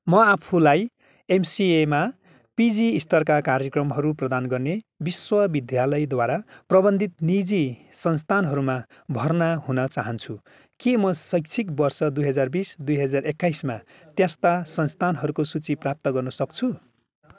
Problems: background sounds at intervals